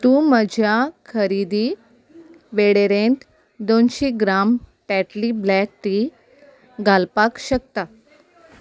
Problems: constant background noise